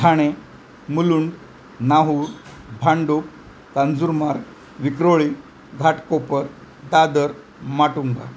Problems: constant background noise